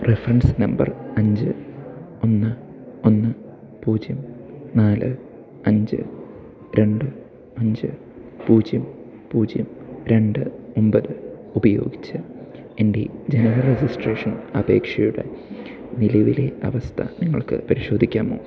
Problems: none marked